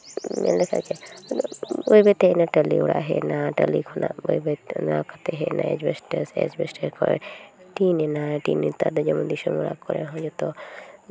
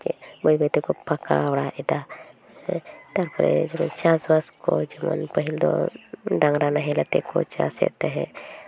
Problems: none marked